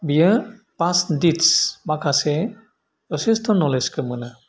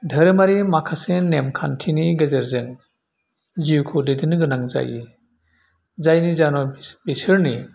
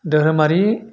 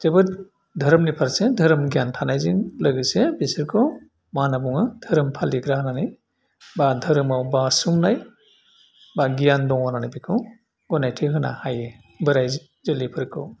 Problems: none marked